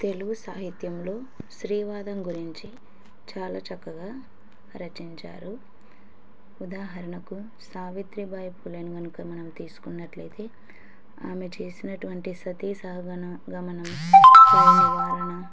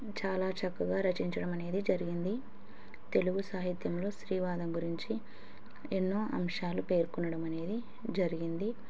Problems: background sounds at intervals